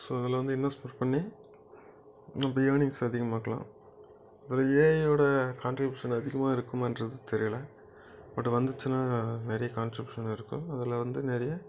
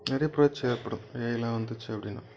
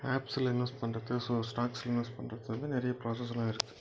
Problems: background sounds at intervals